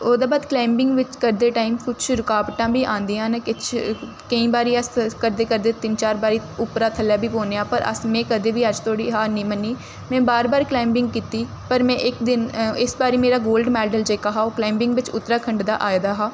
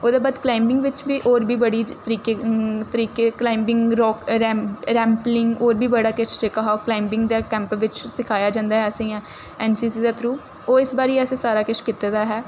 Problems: none marked